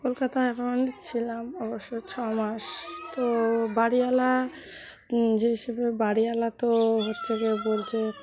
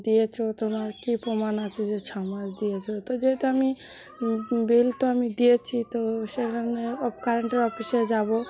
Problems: none marked